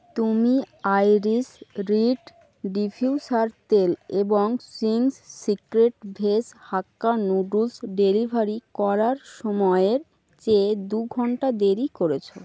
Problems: constant background noise